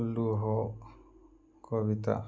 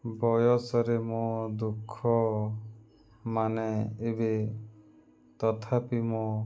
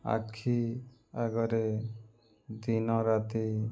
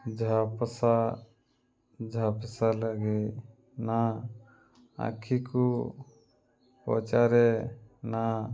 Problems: background sounds at intervals